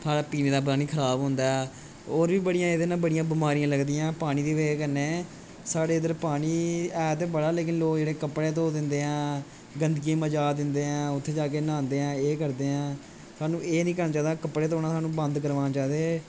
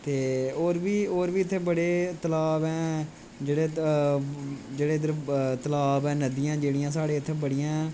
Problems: constant background noise